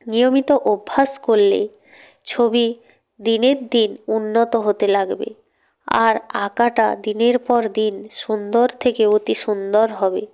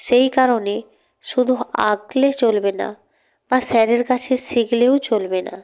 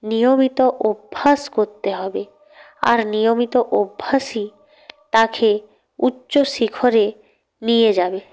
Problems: none marked